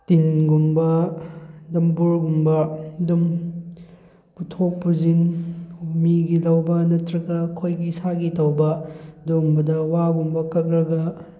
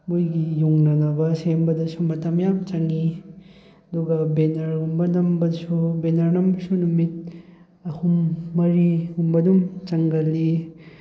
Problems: none marked